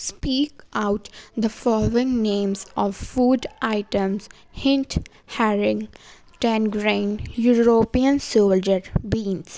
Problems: background sounds at intervals